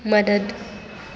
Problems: none marked